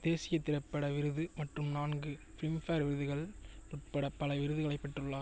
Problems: none marked